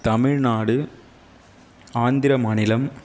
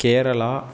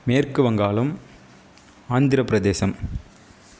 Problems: none marked